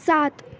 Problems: background sounds at intervals